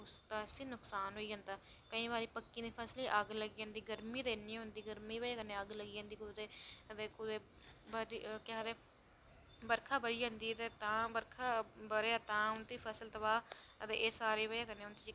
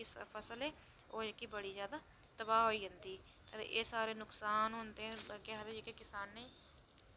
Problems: low volume